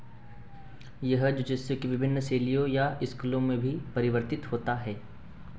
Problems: none marked